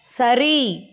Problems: none marked